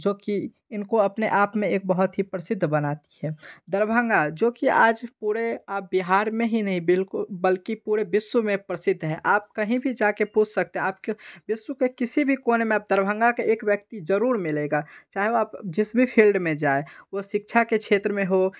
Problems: background sounds at intervals